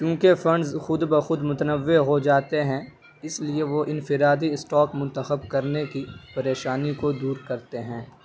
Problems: none marked